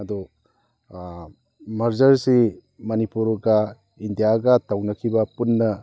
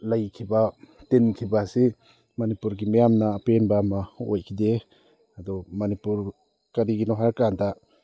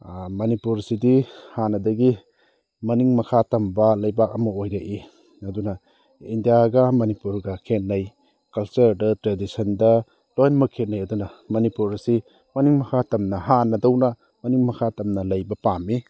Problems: none marked